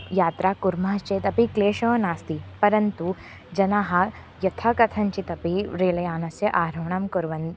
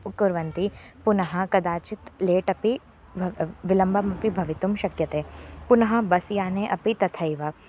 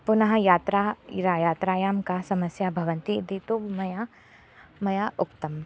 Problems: constant background noise